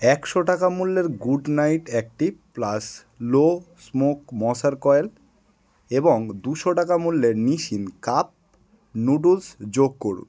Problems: none marked